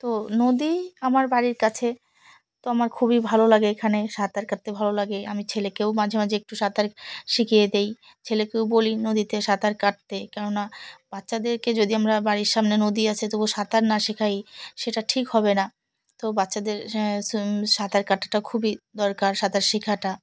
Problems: background sounds at intervals